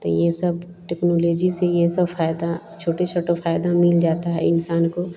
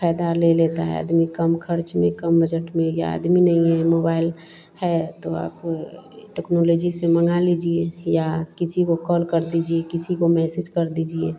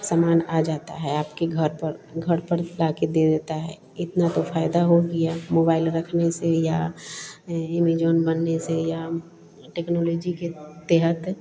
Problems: none marked